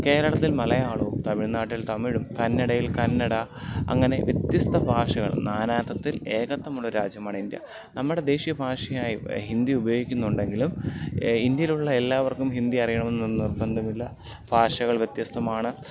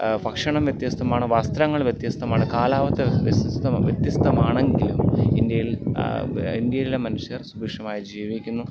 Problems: constant background noise